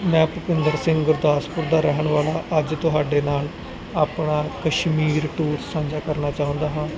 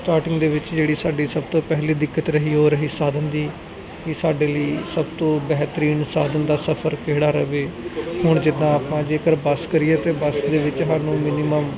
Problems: background sounds at intervals, background conversations at intervals